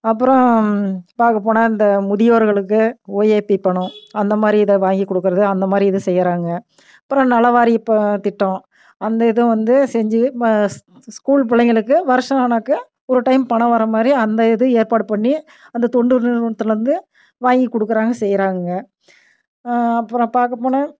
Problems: none marked